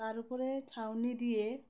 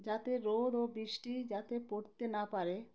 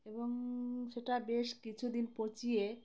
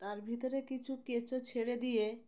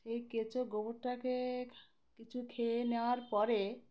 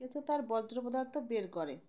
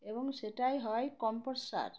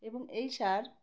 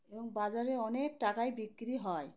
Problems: constant background noise, background conversations at intervals